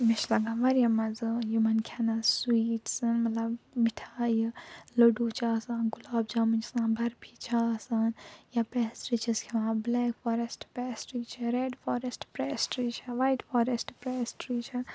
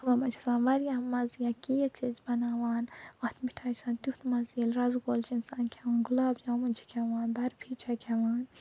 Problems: low volume